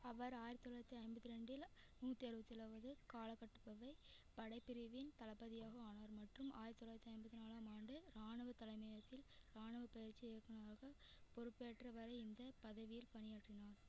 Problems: none marked